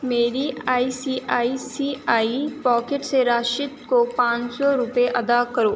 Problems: constant background noise